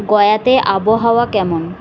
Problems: none marked